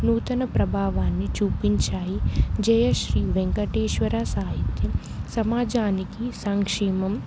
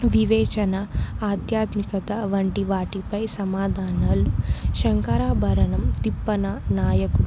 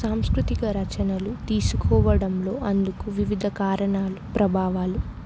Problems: none marked